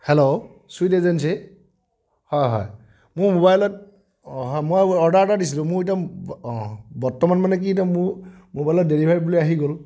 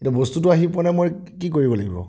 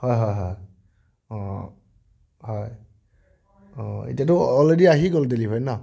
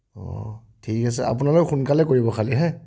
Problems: none marked